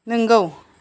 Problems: none marked